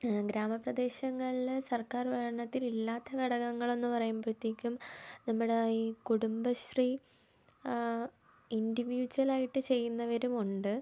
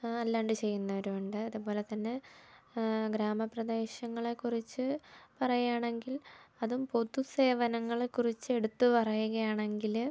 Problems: low volume